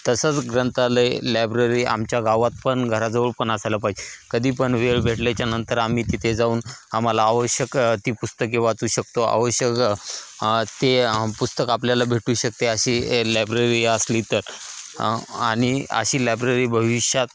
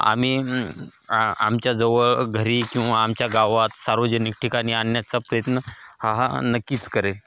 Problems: constant background noise, background conversations at intervals, echo